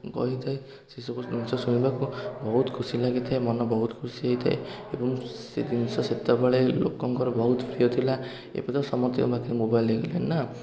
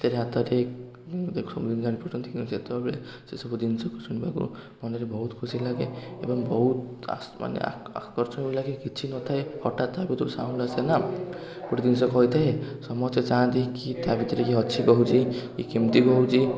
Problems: constant background noise, continuous background conversations